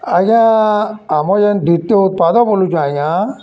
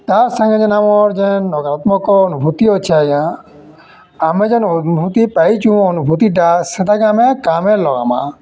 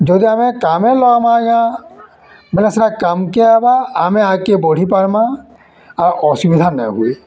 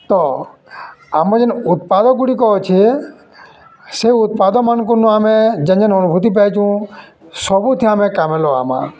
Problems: constant background noise, continuous background conversations